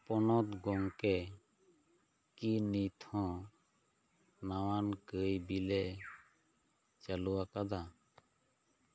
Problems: none marked